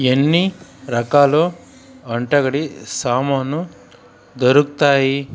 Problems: constant background noise